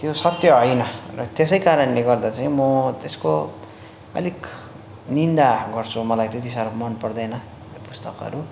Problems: constant background noise